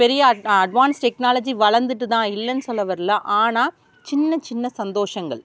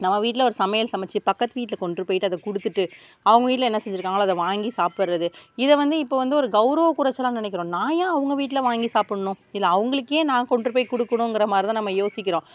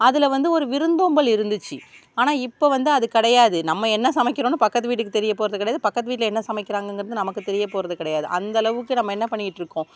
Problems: background sounds at intervals